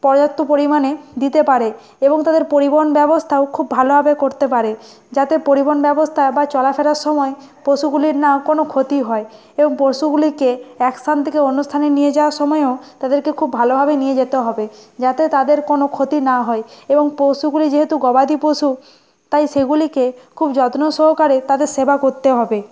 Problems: constant background noise, background conversations at intervals